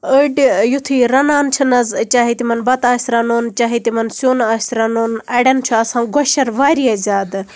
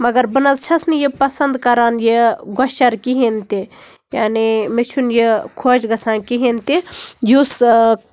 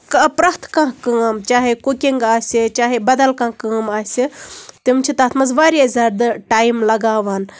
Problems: background sounds at intervals